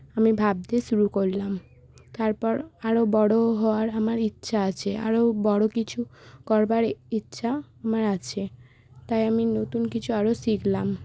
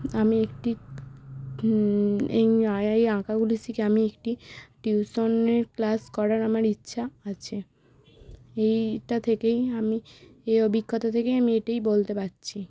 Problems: none marked